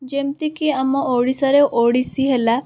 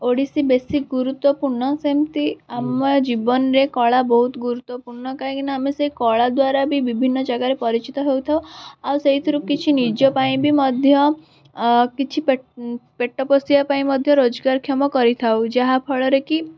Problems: constant background noise, background conversations at intervals